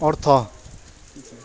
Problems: none marked